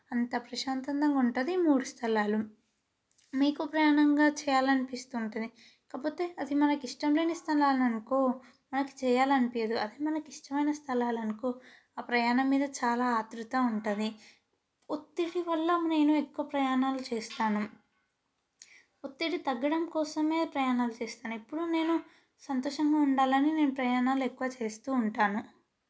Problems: background sounds at intervals